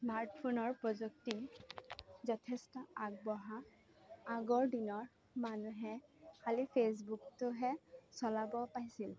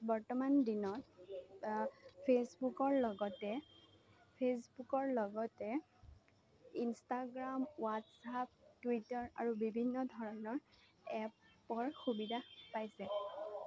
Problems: low volume